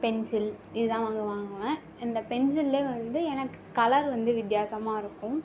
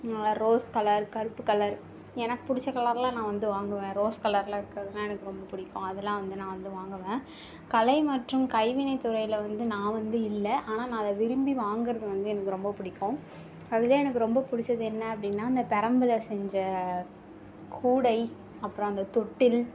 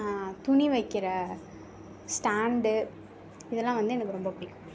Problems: background sounds at intervals